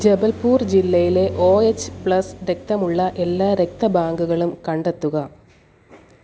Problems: none marked